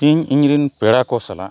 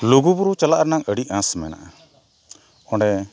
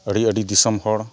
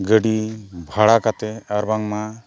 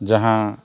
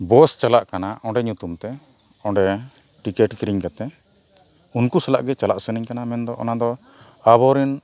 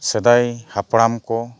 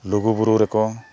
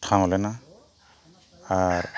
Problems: background sounds at intervals